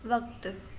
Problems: none marked